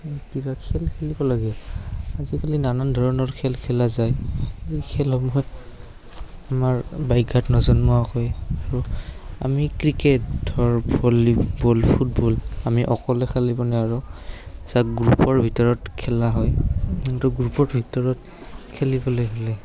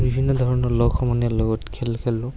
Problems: constant background noise, background conversations at intervals